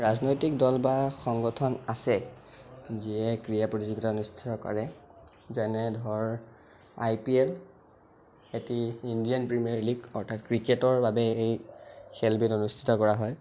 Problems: constant background noise